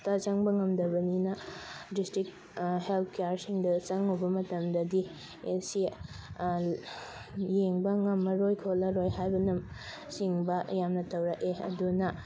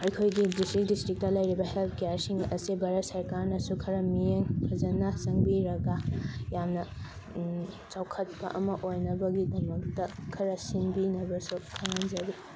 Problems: constant background noise